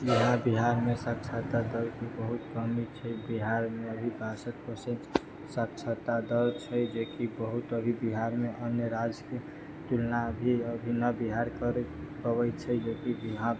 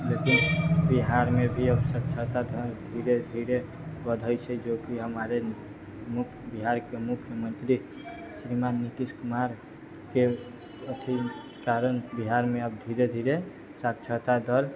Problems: none marked